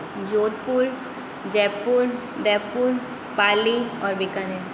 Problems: constant background noise, background conversations at intervals